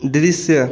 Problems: none marked